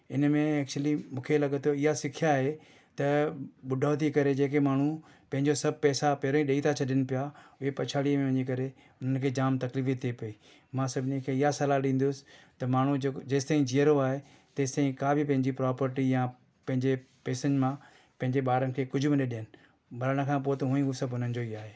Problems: none marked